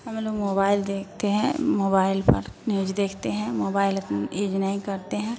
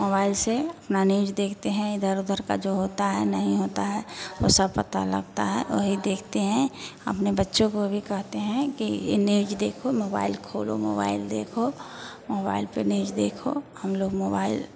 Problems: none marked